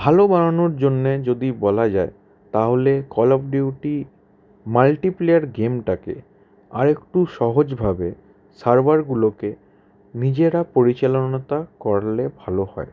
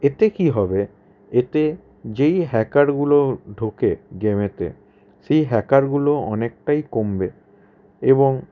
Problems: none marked